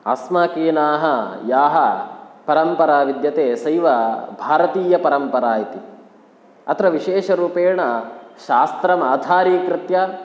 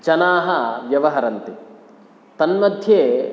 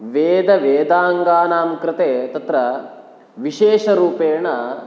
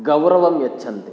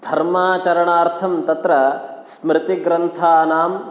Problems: none marked